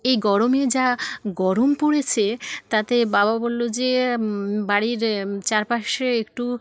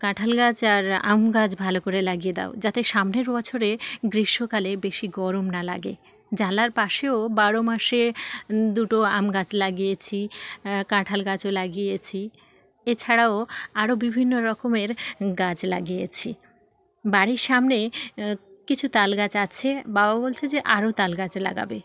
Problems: none marked